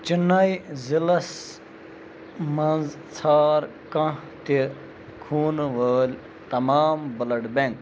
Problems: constant background noise